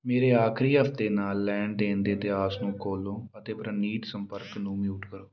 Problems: background sounds at intervals, background conversations at intervals